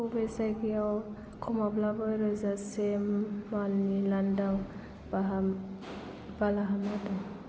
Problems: low volume